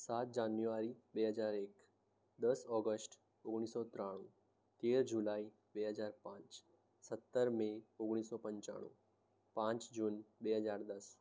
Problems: low volume